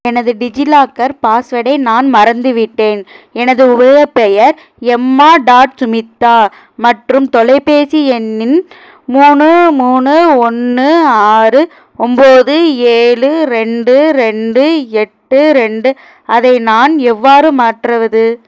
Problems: none marked